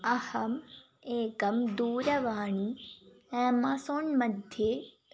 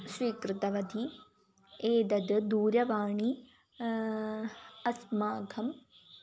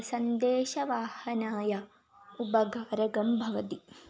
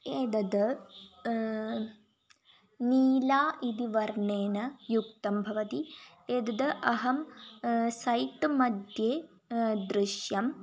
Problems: none marked